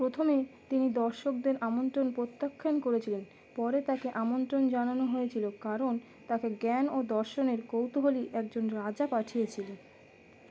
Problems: none marked